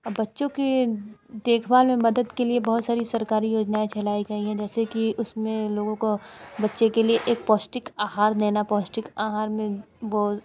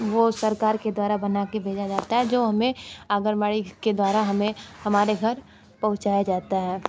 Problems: constant background noise